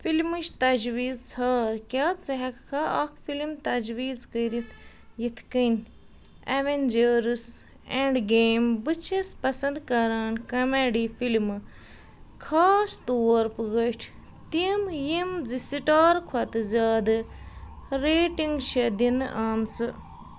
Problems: none marked